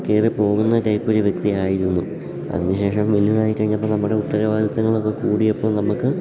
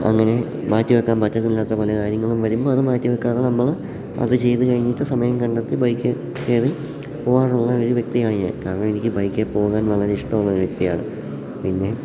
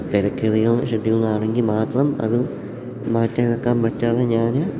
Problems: background sounds at intervals